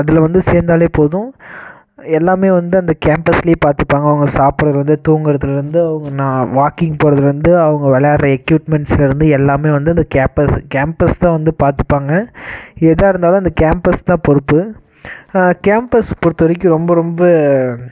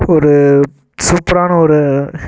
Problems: constant background noise